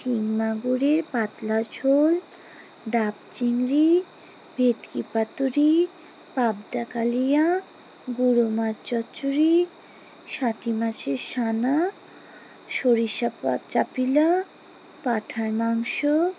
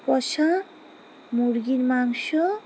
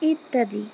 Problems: none marked